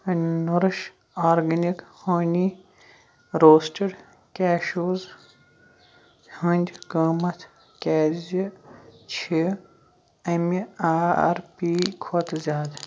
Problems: background sounds at intervals